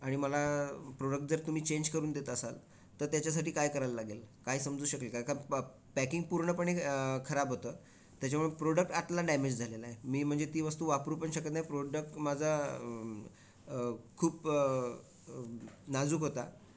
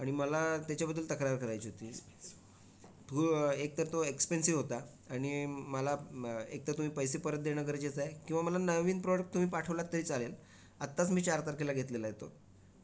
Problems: background conversations at intervals